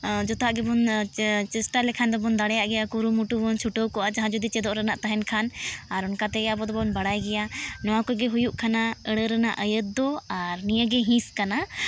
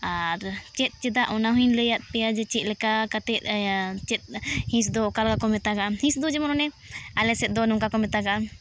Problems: none marked